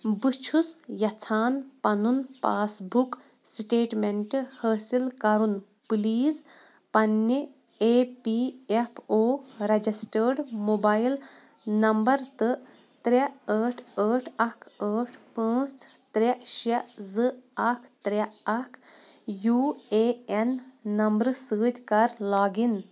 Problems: none marked